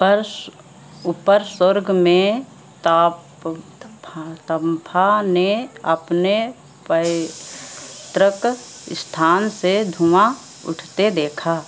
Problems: constant background noise